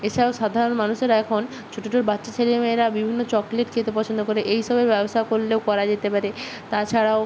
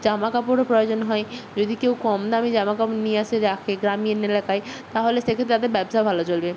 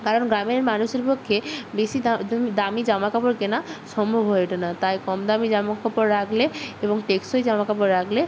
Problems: constant background noise